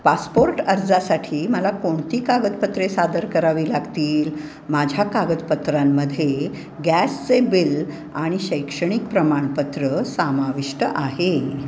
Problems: none marked